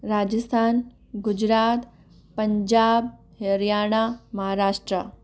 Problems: none marked